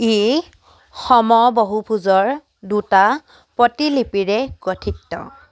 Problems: none marked